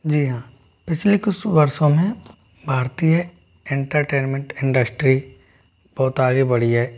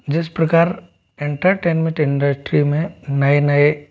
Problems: background sounds at intervals